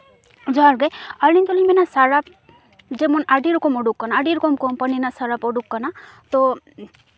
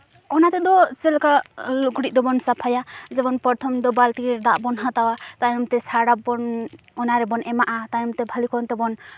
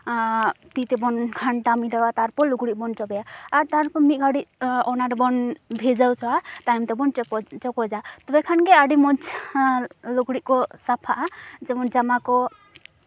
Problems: background sounds at intervals